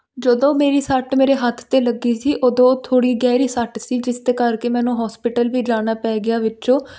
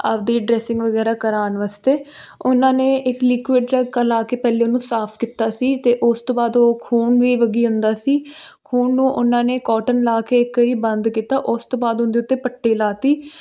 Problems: constant background noise